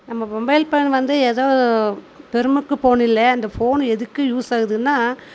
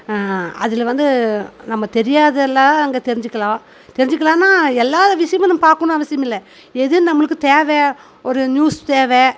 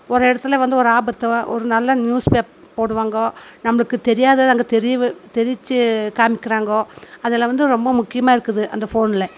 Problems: constant background noise